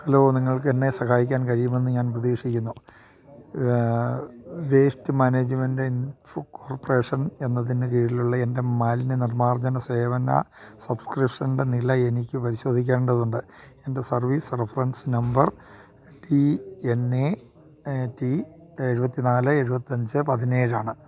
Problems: none marked